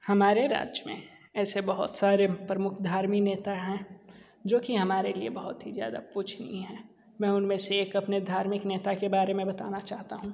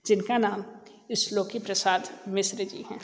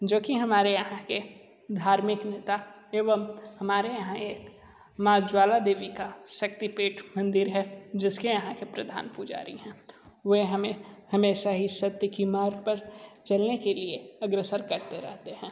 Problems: low volume